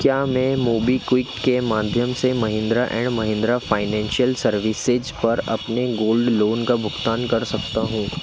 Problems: constant background noise